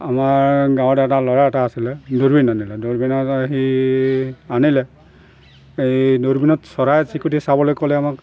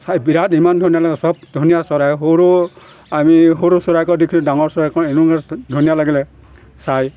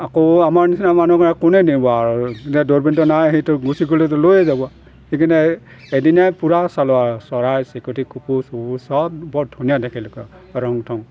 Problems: constant background noise